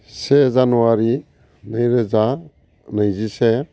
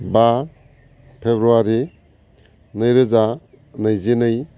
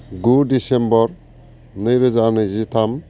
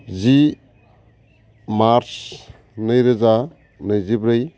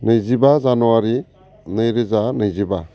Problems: constant background noise